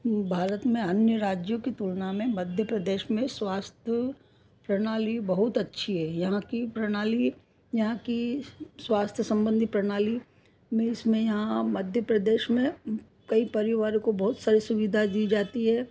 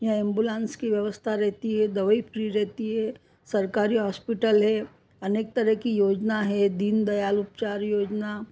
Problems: none marked